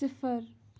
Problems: none marked